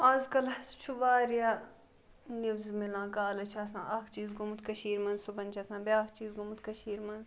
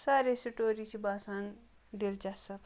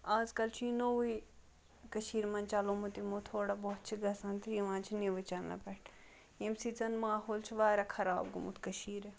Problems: background sounds at intervals